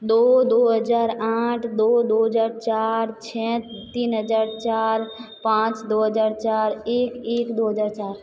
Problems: echo